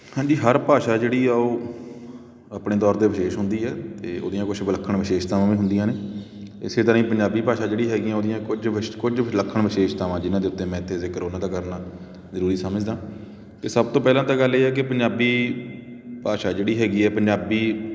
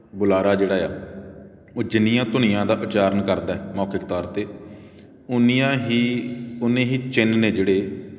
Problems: background sounds at intervals